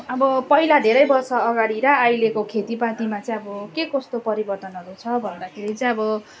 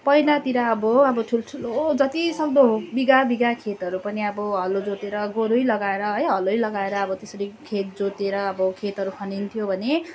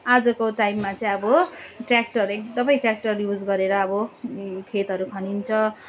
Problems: constant background noise